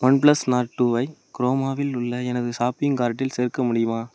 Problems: none marked